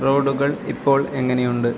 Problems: constant background noise, low volume